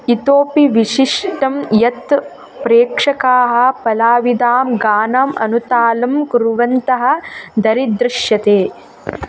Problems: constant background noise